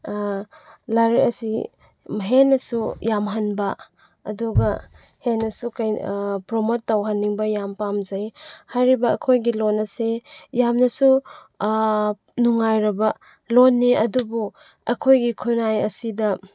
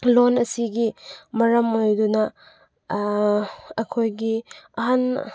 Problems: none marked